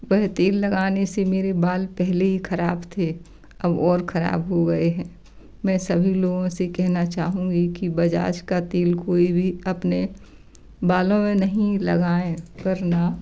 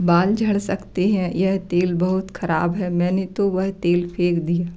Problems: none marked